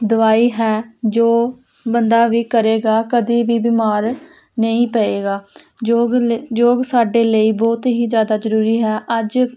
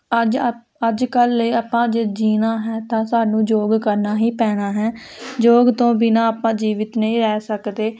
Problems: constant background noise